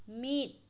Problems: none marked